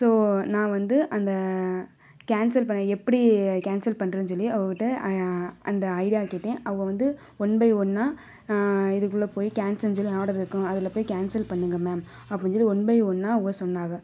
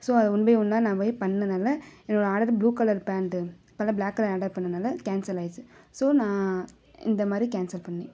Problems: background conversations at intervals